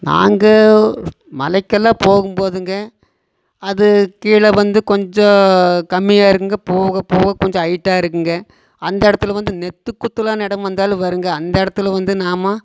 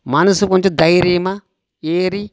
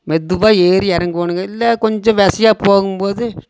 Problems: constant background noise